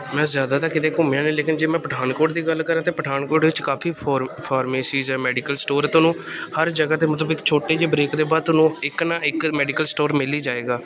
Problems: background sounds at intervals